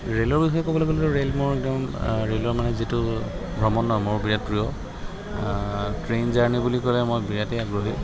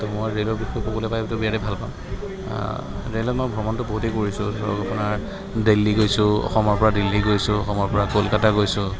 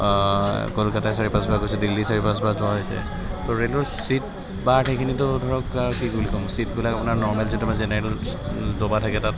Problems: constant background noise